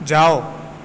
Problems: constant background noise